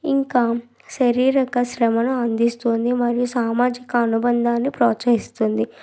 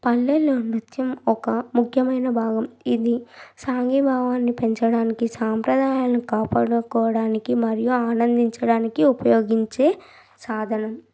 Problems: background sounds at intervals